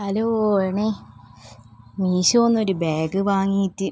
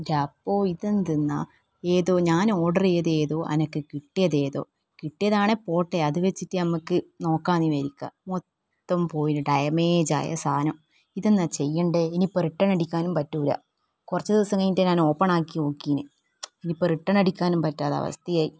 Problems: none marked